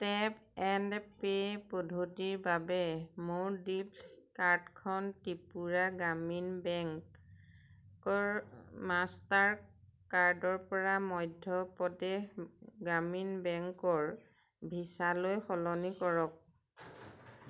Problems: none marked